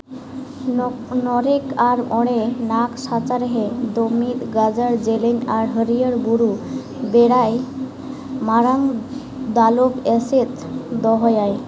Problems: background sounds at intervals, background conversations at intervals